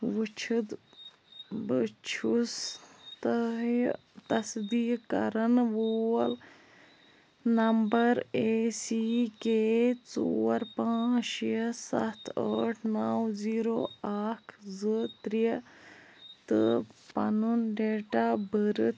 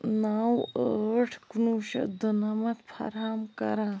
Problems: none marked